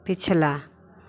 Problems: none marked